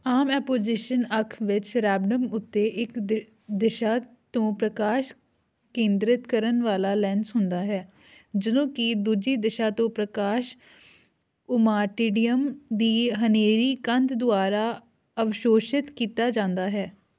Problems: background sounds at intervals